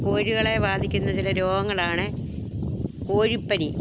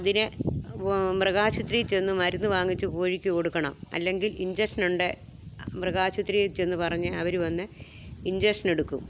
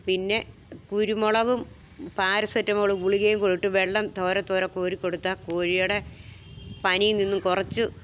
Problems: background sounds at intervals